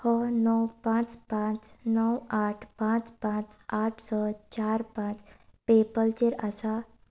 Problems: none marked